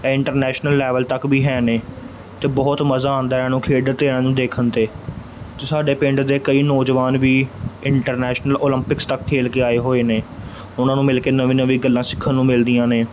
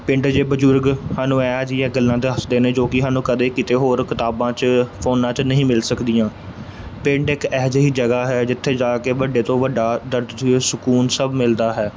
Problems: none marked